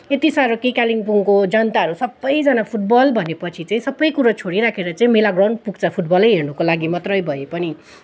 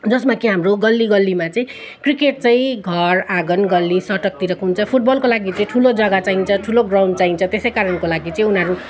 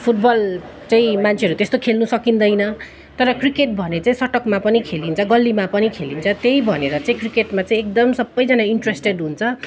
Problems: continuous background conversations